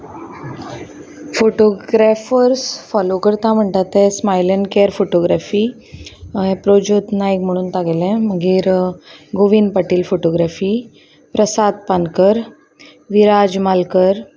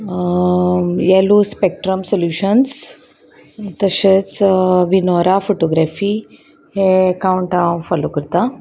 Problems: constant background noise, background conversations at intervals